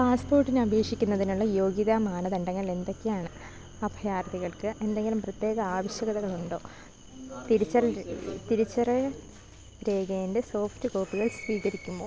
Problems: background sounds at intervals